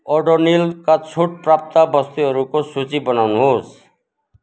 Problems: background sounds at intervals